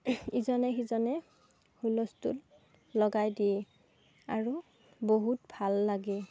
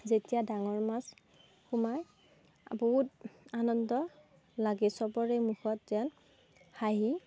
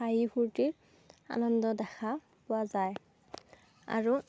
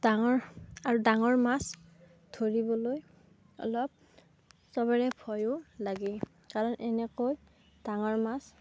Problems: none marked